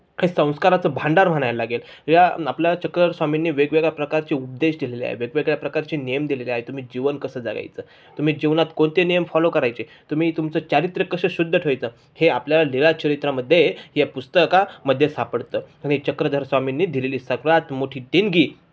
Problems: background sounds at intervals, background conversations at intervals